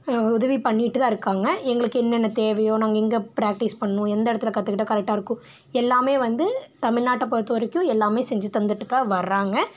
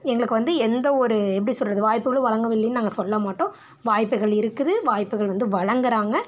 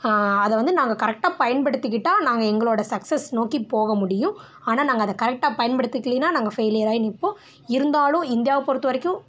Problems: none marked